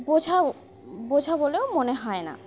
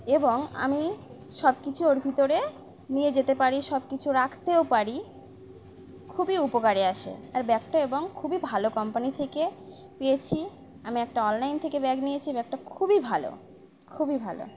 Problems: none marked